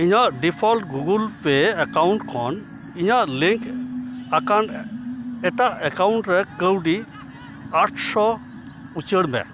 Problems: constant background noise, continuous background conversations